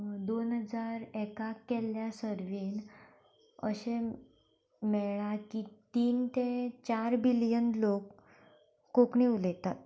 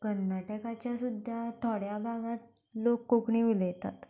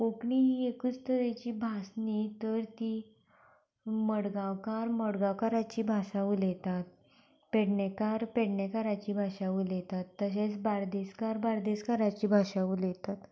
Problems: none marked